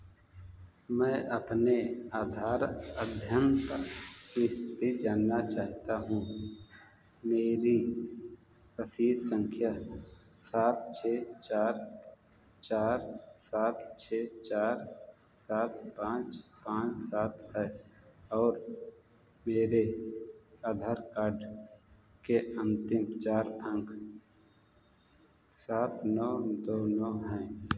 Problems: background sounds at intervals